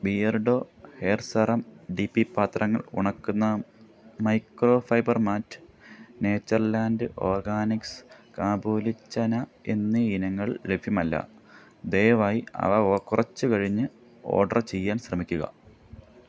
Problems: background sounds at intervals